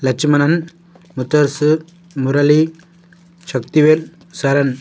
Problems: none marked